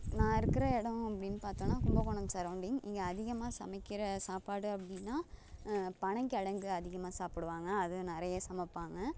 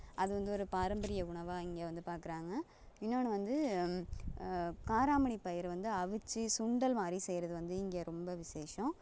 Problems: none marked